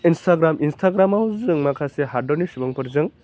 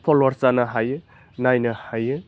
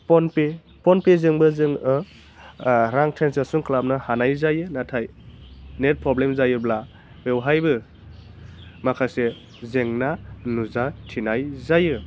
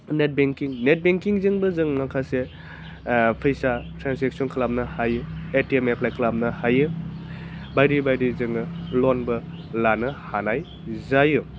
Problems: none marked